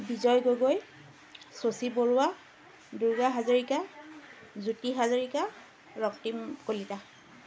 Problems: none marked